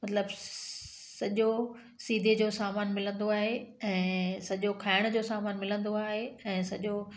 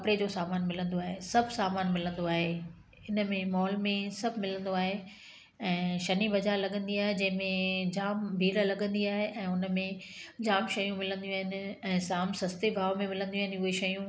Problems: background sounds at intervals, echo